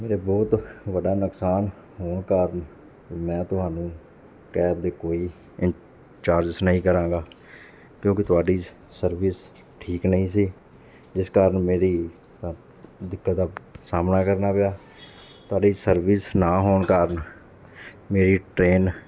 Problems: background sounds at intervals, background conversations at intervals